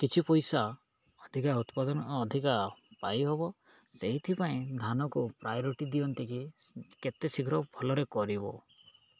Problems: none marked